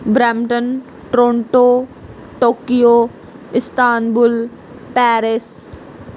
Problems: none marked